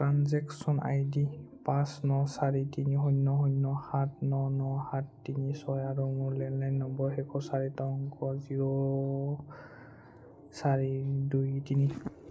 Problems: none marked